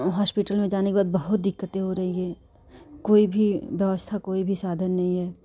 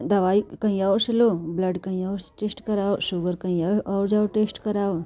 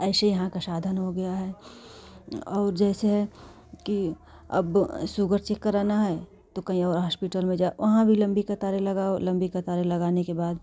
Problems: none marked